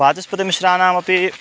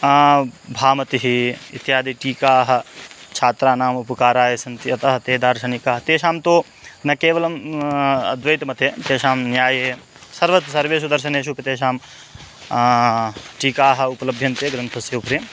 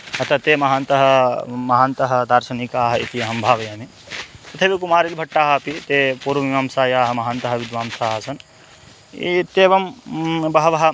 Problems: constant background noise